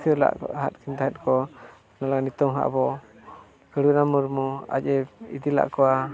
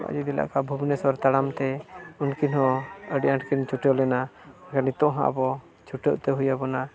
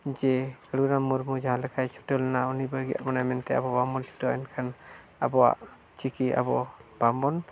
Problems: continuous background conversations